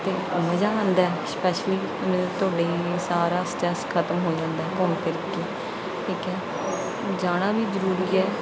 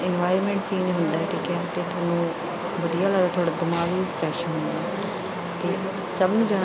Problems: background sounds at intervals